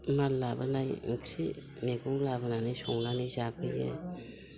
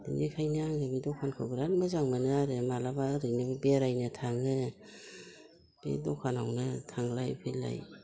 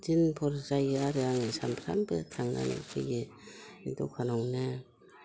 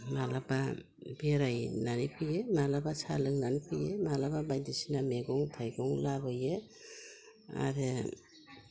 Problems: constant background noise